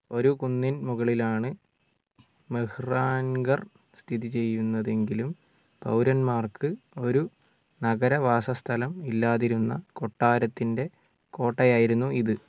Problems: low volume